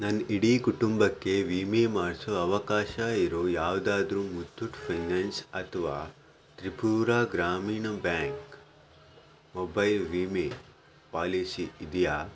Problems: none marked